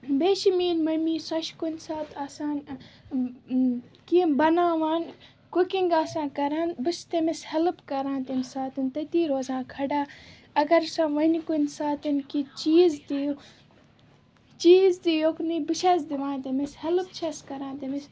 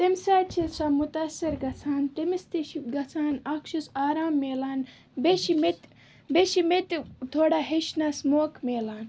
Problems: constant background noise, background conversations at intervals